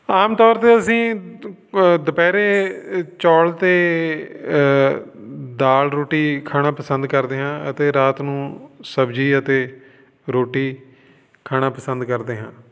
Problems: none marked